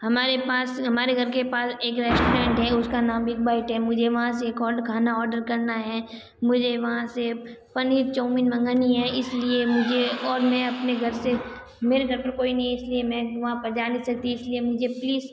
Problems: constant background noise